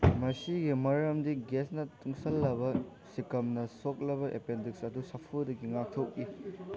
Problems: background conversations at intervals